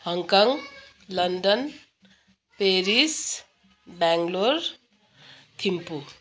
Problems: constant background noise, continuous background conversations